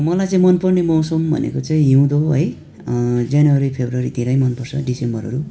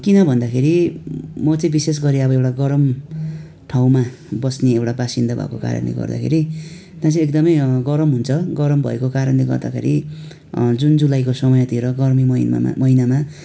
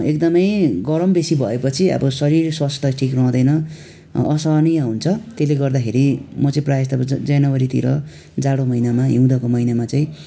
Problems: constant background noise